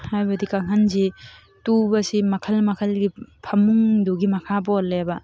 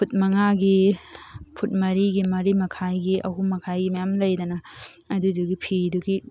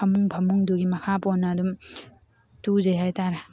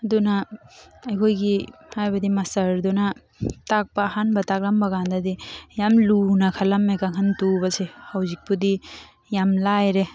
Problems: background sounds at intervals